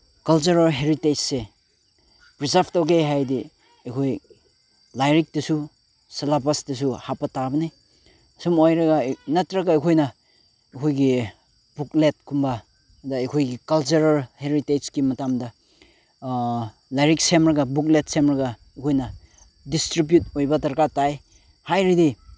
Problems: background sounds at intervals